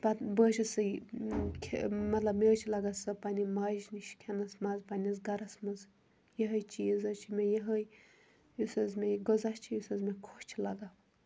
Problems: none marked